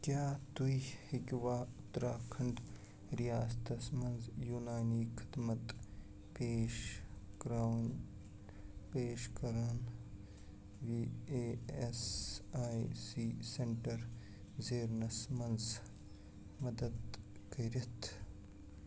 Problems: background sounds at intervals, low volume